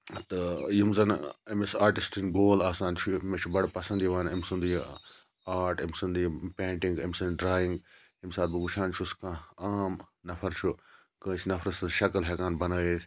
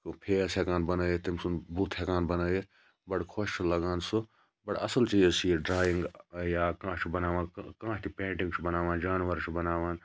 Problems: none marked